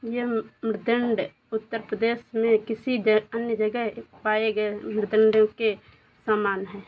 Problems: none marked